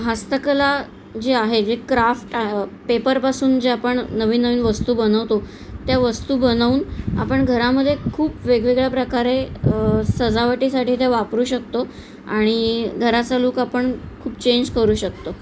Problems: constant background noise, background conversations at intervals